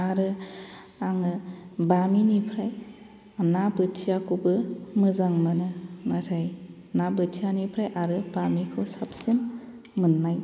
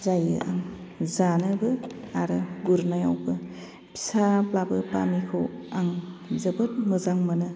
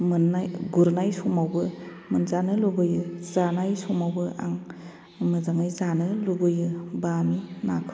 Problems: constant background noise